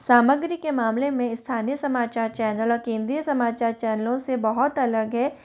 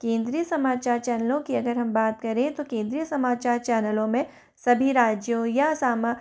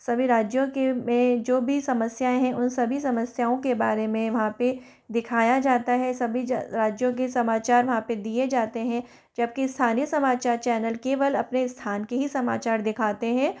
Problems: constant background noise